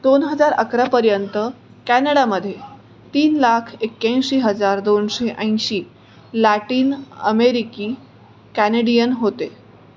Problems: none marked